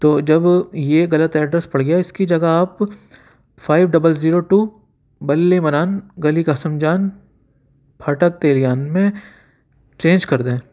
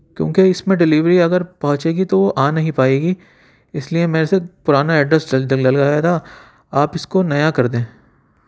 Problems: constant background noise